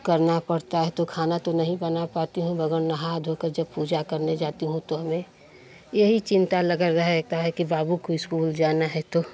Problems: constant background noise, continuous background conversations